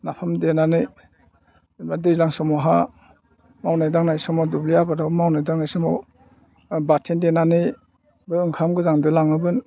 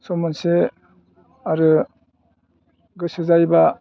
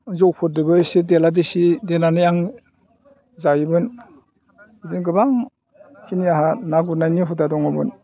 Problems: low volume